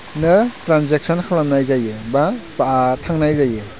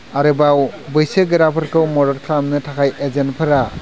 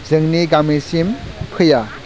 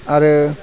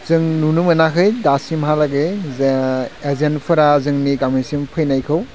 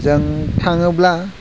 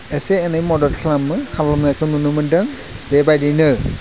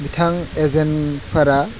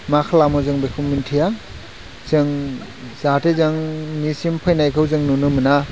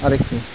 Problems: constant background noise